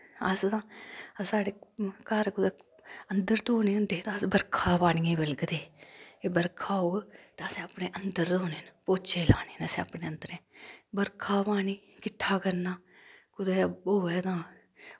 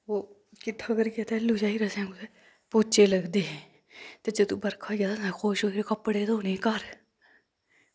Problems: none marked